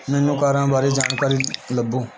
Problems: constant background noise